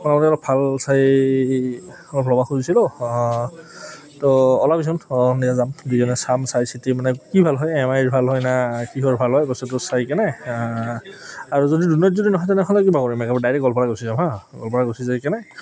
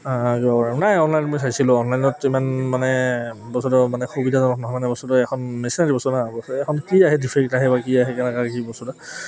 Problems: background sounds at intervals, background conversations at intervals